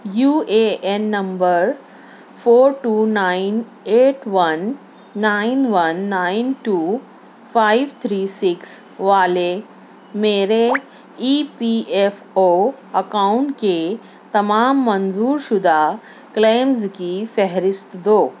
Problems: constant background noise